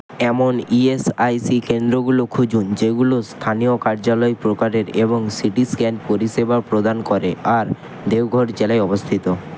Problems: none marked